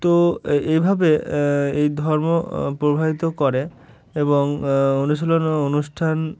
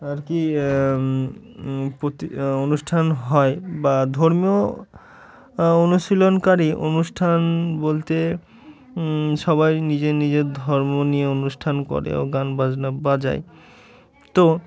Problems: background sounds at intervals, background conversations at intervals